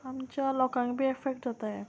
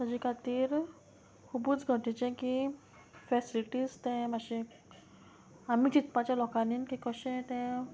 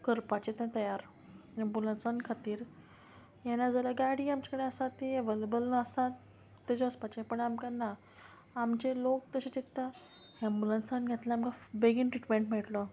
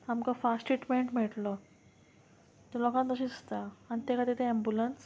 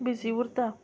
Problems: none marked